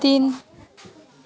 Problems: background sounds at intervals